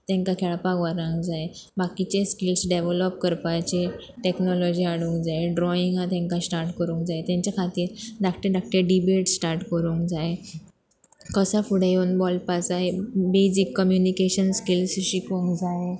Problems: none marked